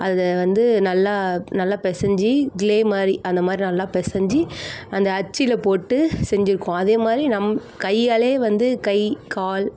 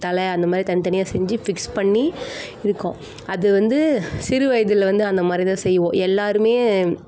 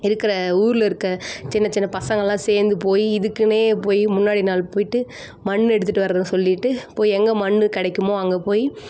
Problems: constant background noise, background conversations at intervals